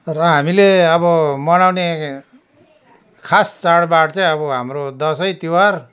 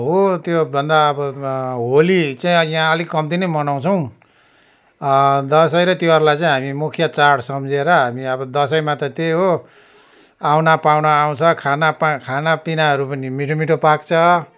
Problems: none marked